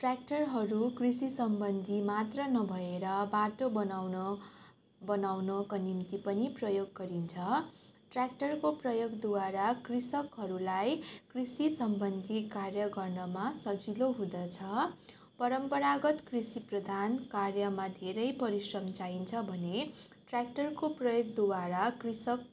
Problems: none marked